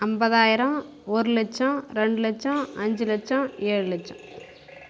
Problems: background sounds at intervals